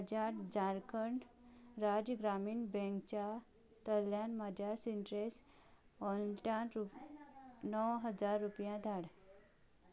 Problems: none marked